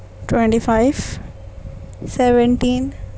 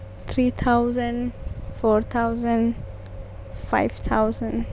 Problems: none marked